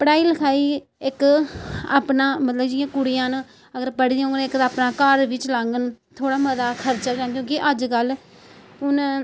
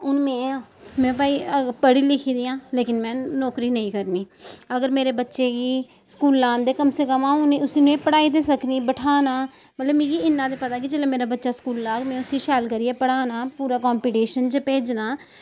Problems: none marked